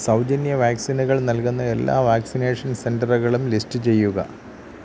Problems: constant background noise